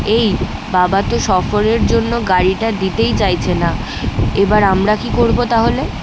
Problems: none marked